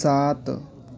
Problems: background sounds at intervals